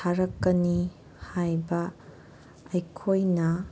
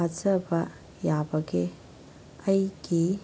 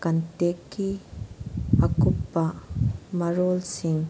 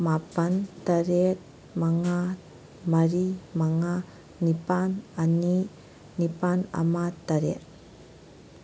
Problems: none marked